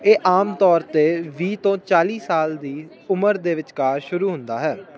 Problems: constant background noise